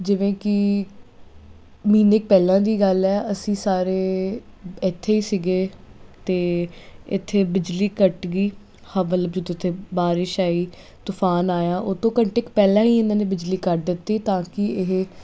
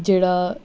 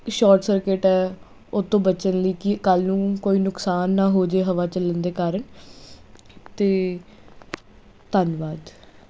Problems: constant background noise